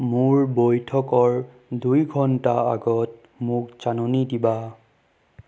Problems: none marked